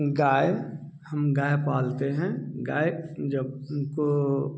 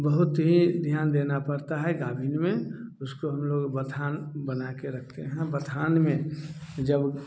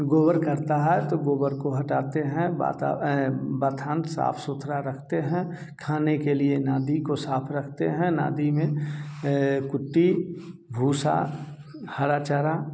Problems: constant background noise